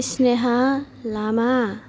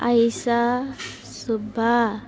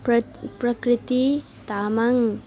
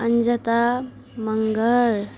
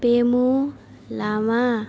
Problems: background sounds at intervals